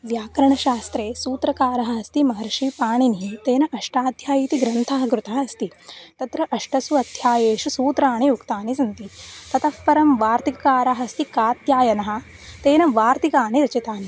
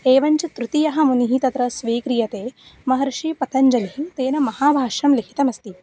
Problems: constant background noise